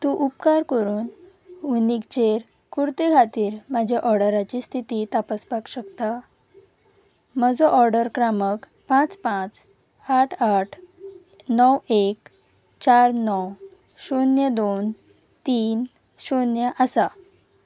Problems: none marked